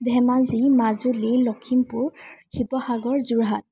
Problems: constant background noise